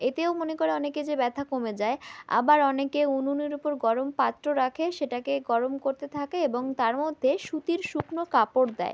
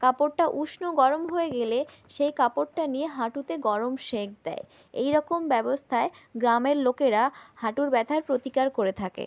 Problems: background sounds at intervals